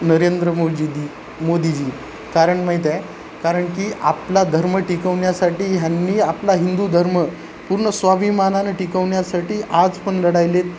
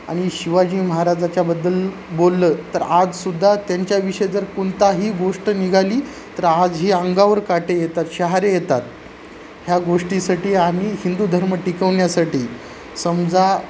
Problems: constant background noise